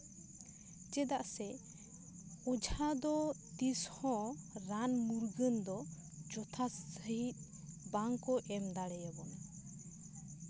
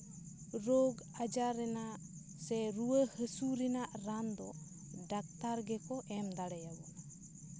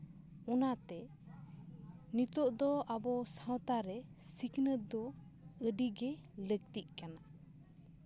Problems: none marked